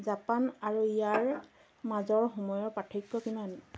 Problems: background sounds at intervals, low volume